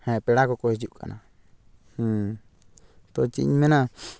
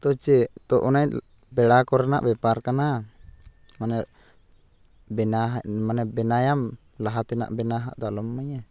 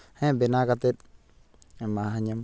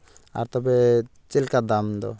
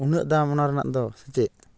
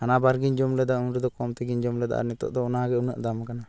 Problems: none marked